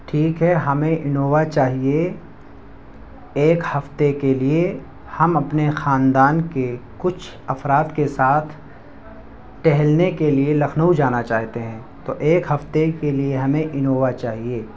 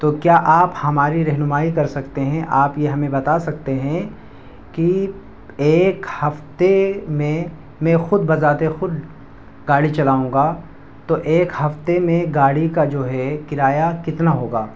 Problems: background sounds at intervals, background conversations at intervals